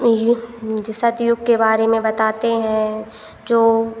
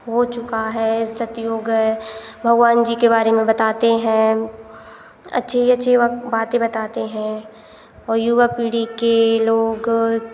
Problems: none marked